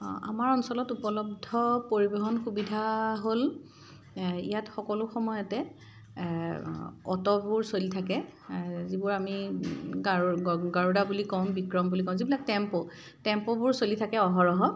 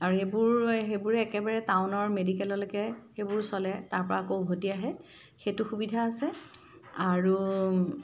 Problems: none marked